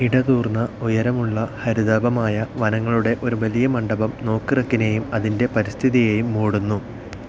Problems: constant background noise